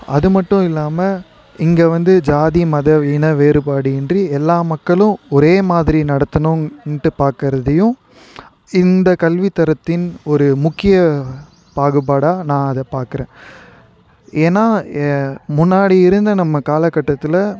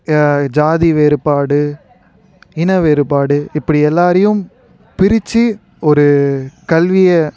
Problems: none marked